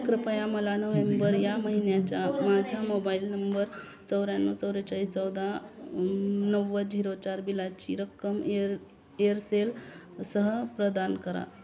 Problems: background sounds at intervals, background conversations at intervals